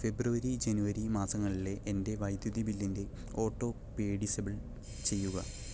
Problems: background sounds at intervals